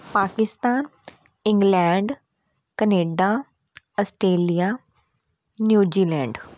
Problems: none marked